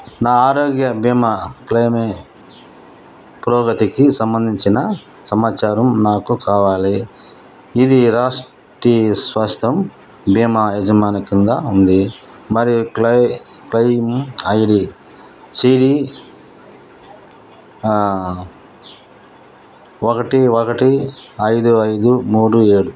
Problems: none marked